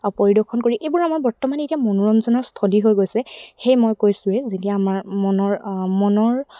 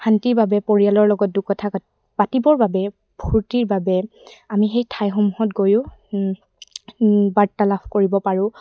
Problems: none marked